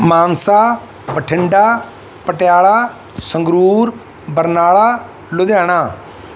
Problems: none marked